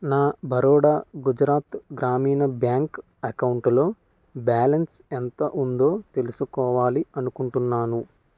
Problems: constant background noise